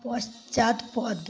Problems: constant background noise